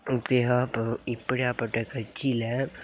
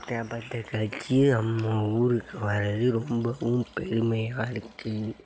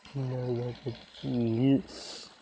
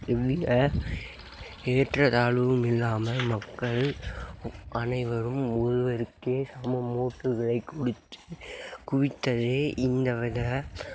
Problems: background sounds at intervals